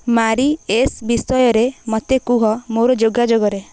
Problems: none marked